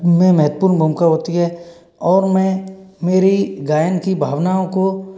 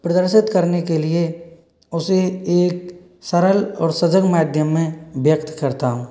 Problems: background sounds at intervals